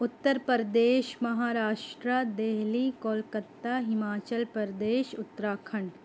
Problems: constant background noise